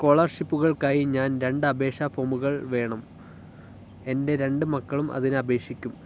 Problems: low volume